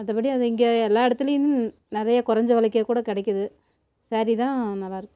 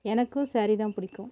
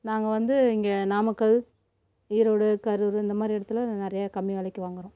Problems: constant background noise